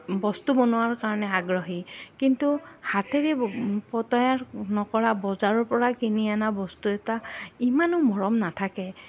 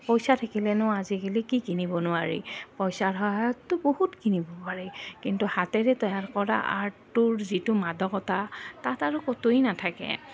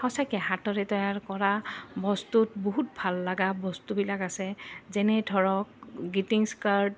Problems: none marked